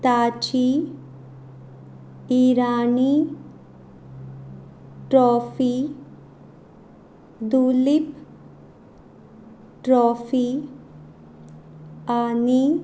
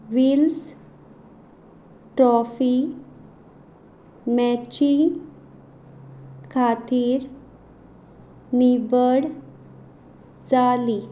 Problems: background sounds at intervals